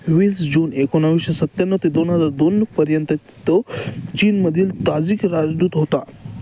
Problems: constant background noise, background conversations at intervals